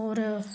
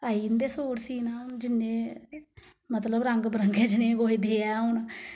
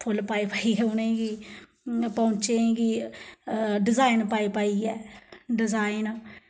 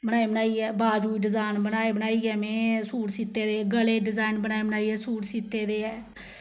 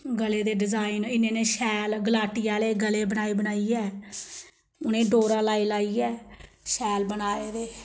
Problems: background sounds at intervals, background conversations at intervals